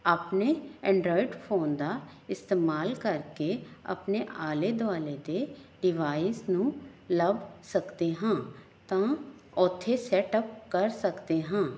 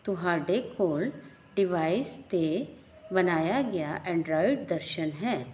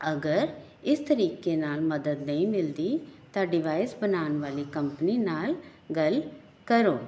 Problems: none marked